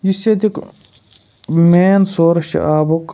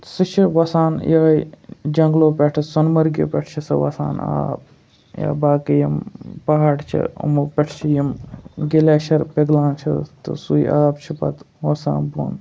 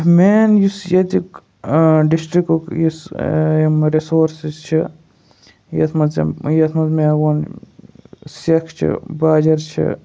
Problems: background sounds at intervals